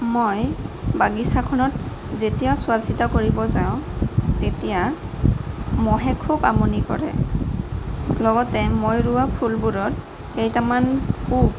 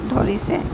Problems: constant background noise, background conversations at intervals